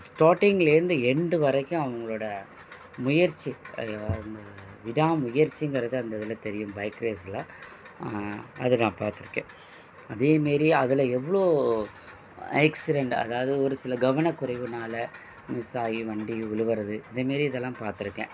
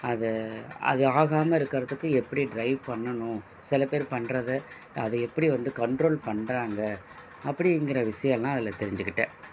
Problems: constant background noise